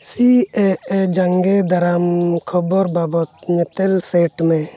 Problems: background sounds at intervals